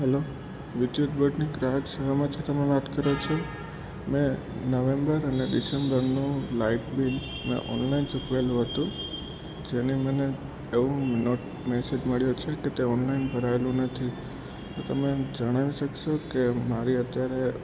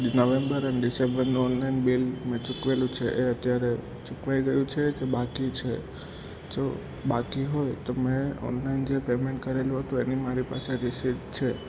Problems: constant background noise